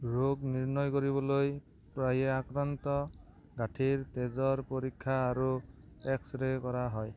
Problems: none marked